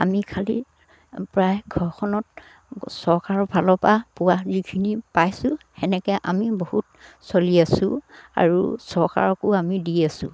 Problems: none marked